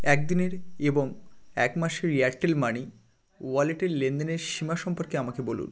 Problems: continuous background conversations